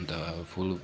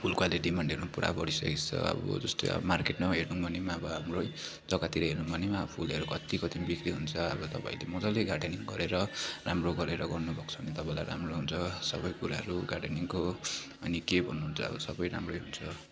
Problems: constant background noise